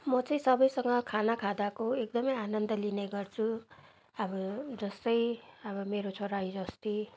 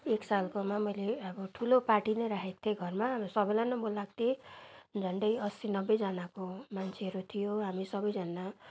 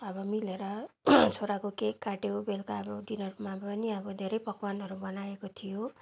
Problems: background sounds at intervals